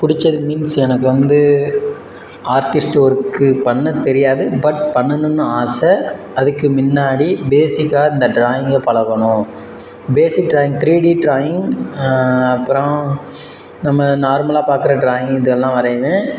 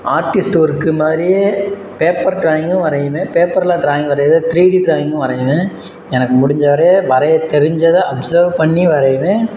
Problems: background sounds at intervals